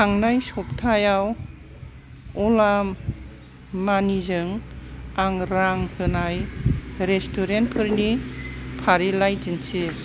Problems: constant background noise